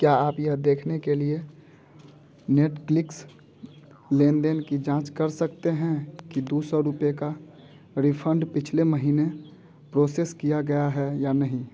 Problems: none marked